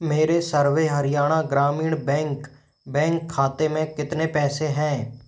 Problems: none marked